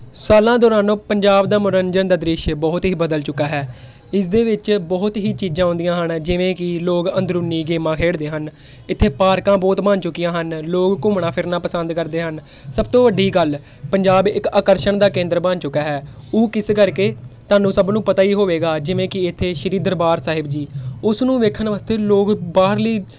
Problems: none marked